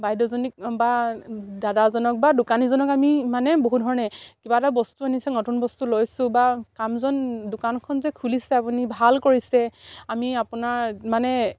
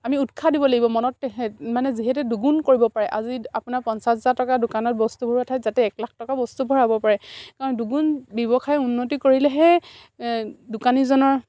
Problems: none marked